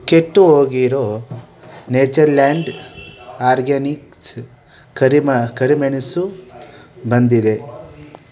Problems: constant background noise